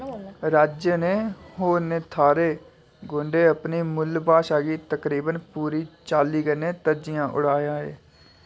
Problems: constant background noise